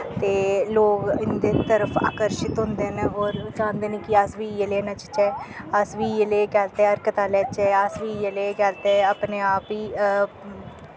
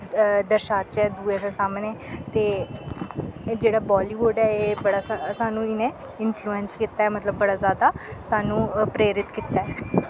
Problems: constant background noise